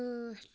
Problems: none marked